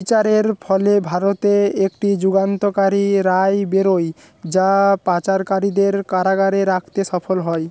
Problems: constant background noise